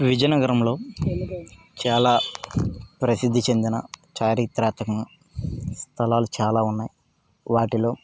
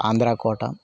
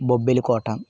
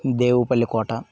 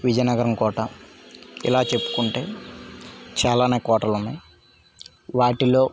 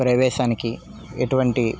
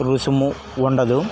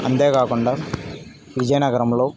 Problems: background sounds at intervals, background conversations at intervals